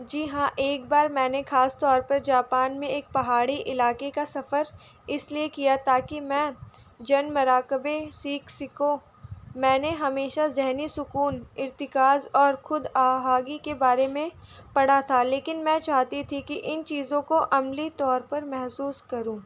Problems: none marked